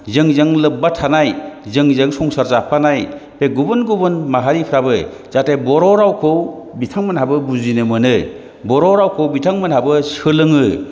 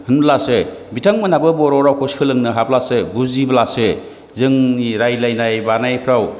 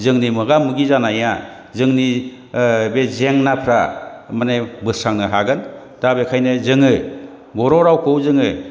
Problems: none marked